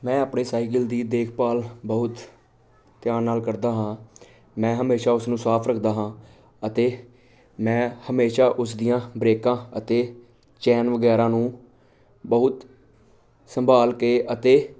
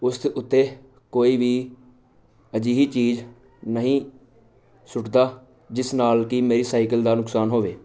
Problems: none marked